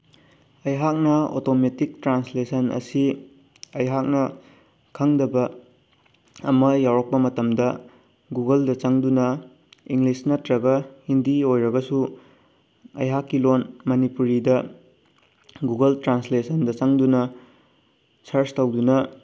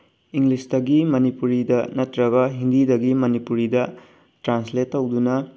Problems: background sounds at intervals